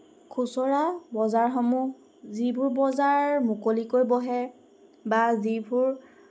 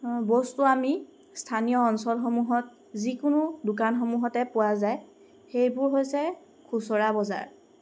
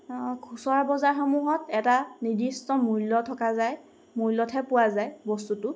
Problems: constant background noise